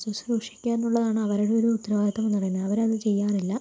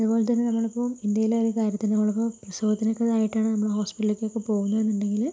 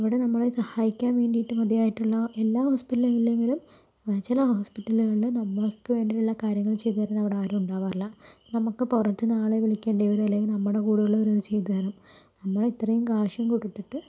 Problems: low volume